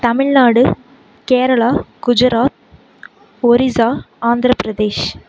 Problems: constant background noise